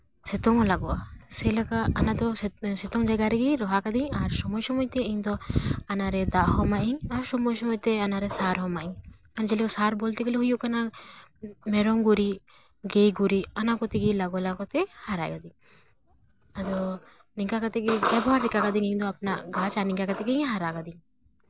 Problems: background sounds at intervals